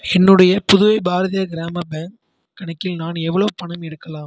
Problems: low volume